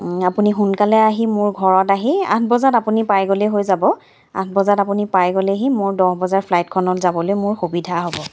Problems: background sounds at intervals